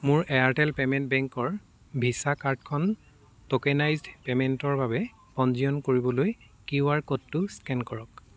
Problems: none marked